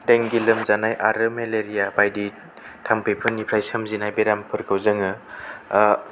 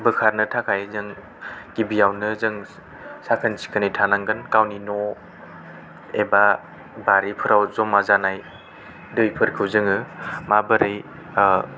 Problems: none marked